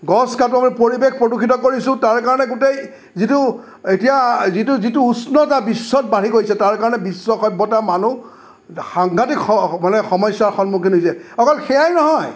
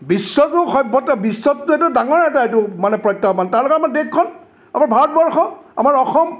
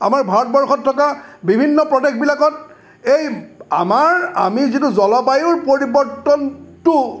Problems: none marked